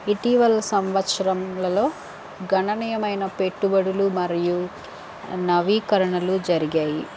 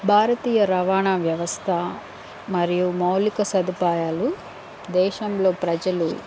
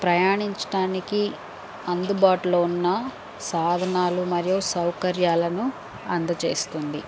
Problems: none marked